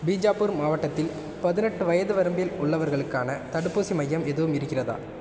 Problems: constant background noise